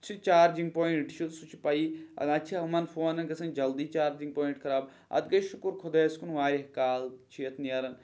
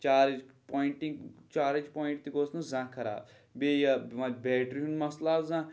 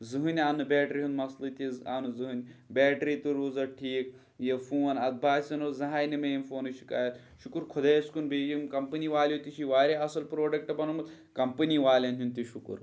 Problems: none marked